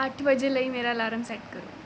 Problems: background sounds at intervals